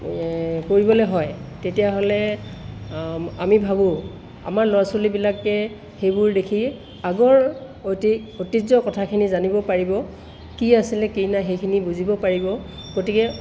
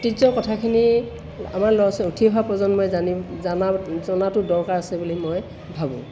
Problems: constant background noise